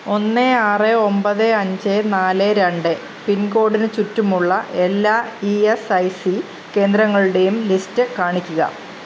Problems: constant background noise